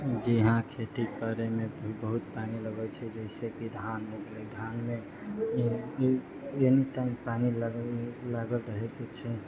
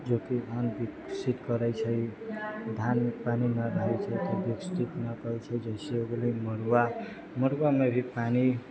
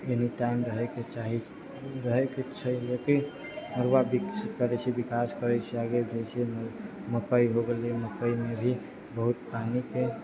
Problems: low volume